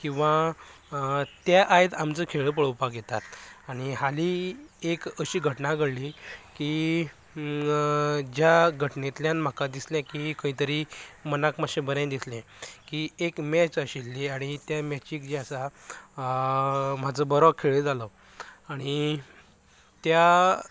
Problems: background conversations at intervals